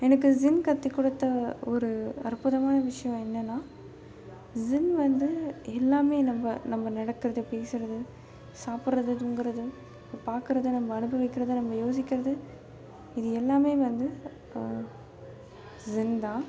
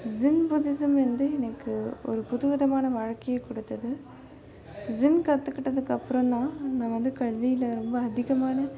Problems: constant background noise